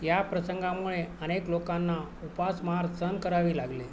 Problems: constant background noise, background conversations at intervals